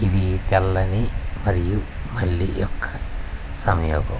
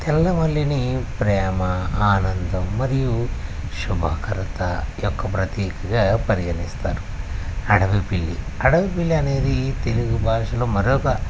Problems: constant background noise